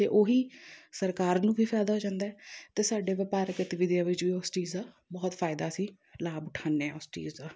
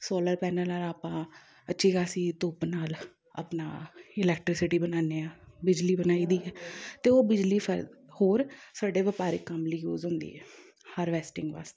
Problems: background conversations at intervals